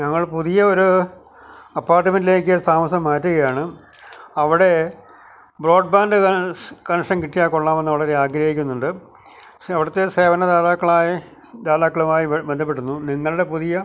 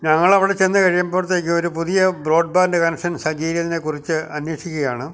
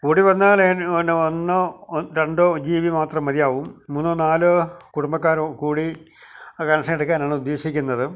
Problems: background conversations at intervals